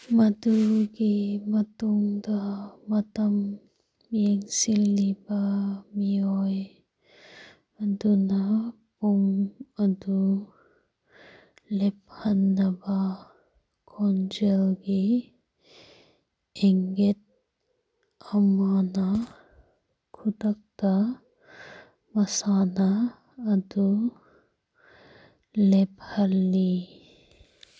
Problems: background sounds at intervals